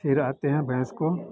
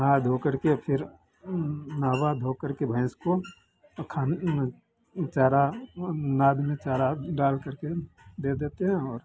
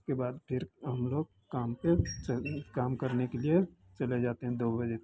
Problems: constant background noise